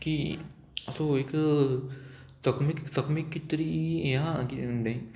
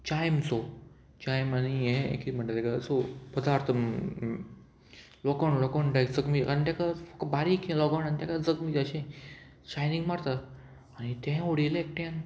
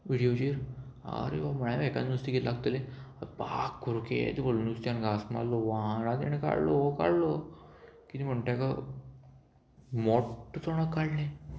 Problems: constant background noise